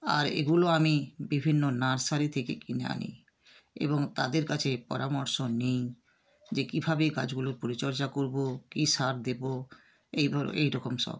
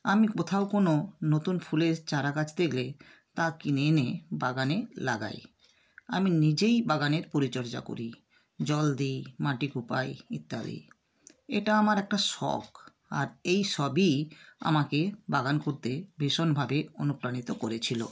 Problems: constant background noise